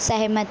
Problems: constant background noise, low volume